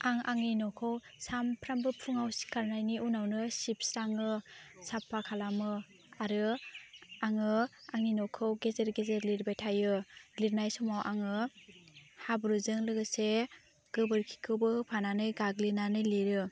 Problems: constant background noise